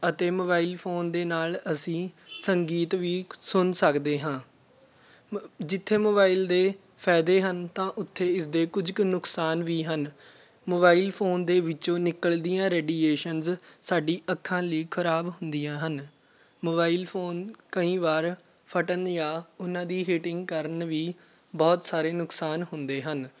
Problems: constant background noise, background conversations at intervals